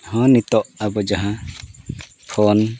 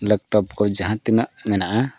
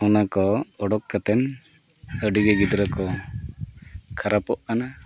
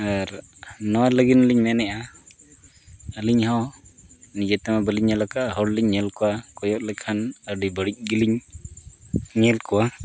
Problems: background sounds at intervals